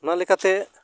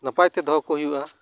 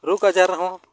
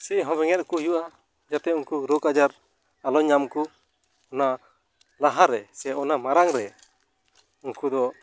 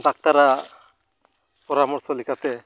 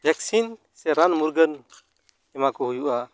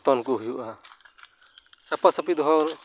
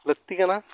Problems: none marked